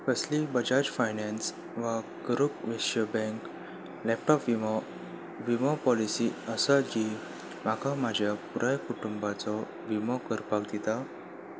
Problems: constant background noise